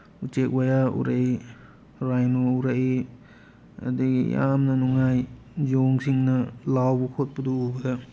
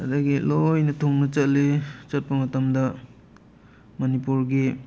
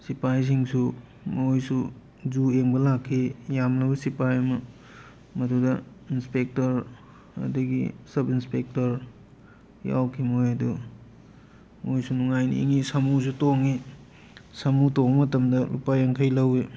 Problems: background sounds at intervals